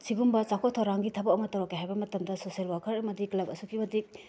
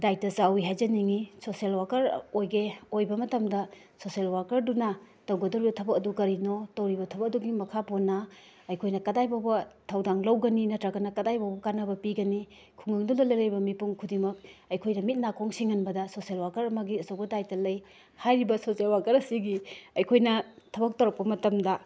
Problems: background sounds at intervals